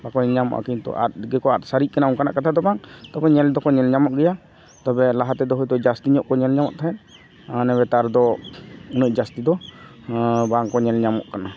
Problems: constant background noise, background conversations at intervals